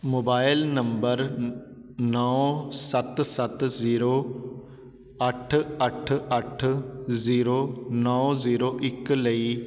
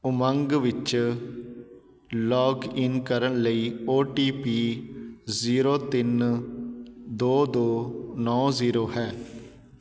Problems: background sounds at intervals